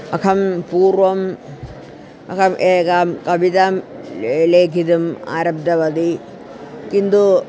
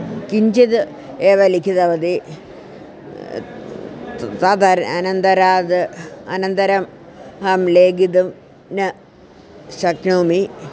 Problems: constant background noise